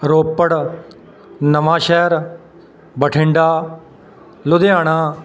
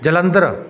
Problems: none marked